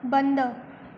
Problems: constant background noise